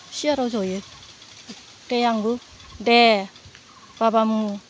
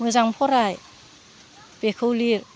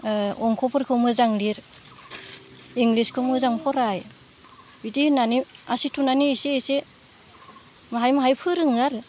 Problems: background conversations at intervals, low volume